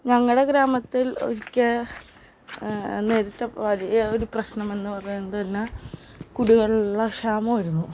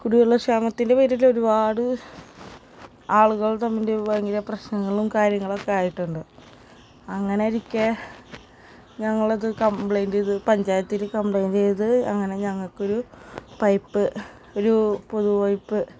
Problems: constant background noise